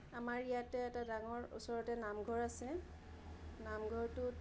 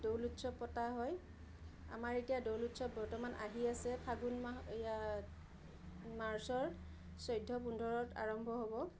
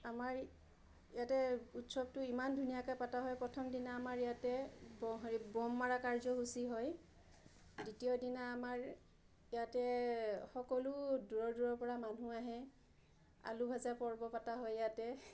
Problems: low volume